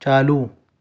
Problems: none marked